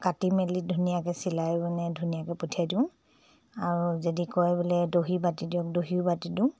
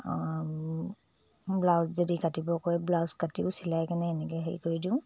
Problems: low volume